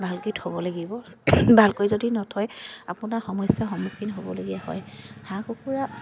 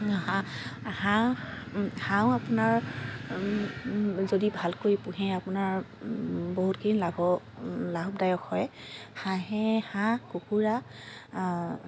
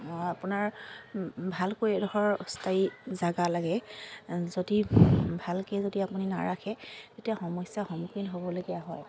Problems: constant background noise, continuous background conversations